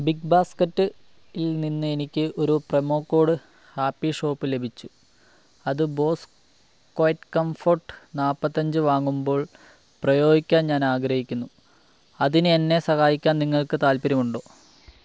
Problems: low volume